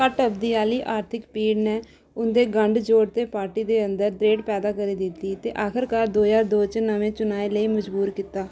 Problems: none marked